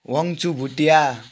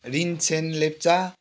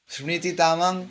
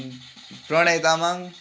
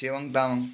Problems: constant background noise